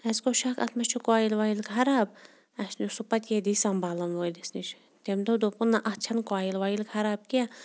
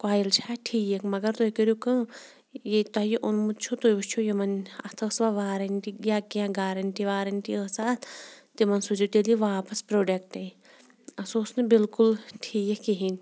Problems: background sounds at intervals